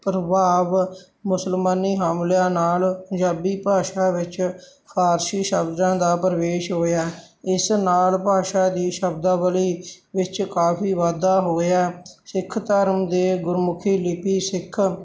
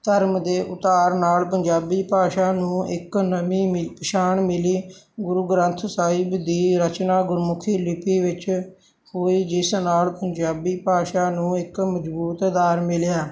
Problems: none marked